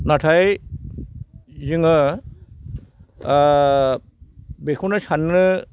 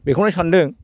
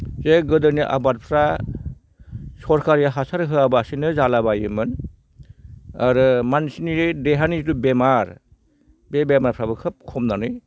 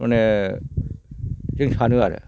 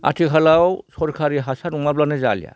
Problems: none marked